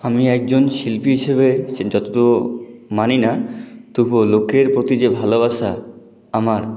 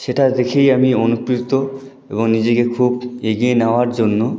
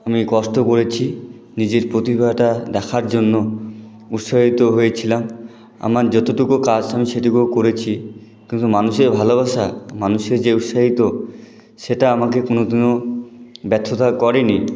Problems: none marked